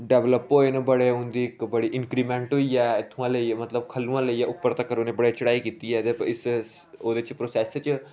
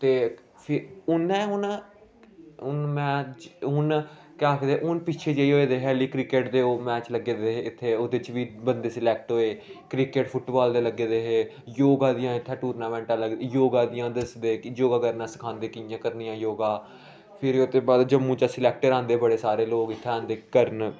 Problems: none marked